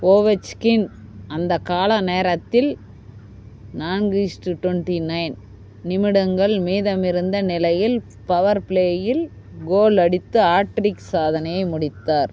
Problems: constant background noise